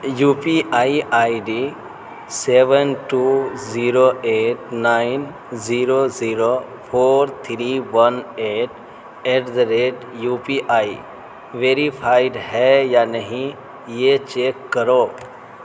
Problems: constant background noise